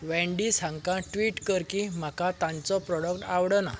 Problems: background sounds at intervals